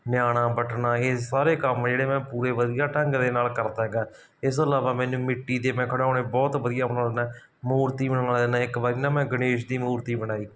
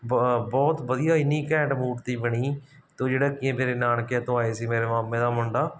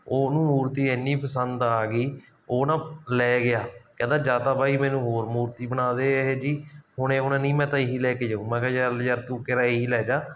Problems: background sounds at intervals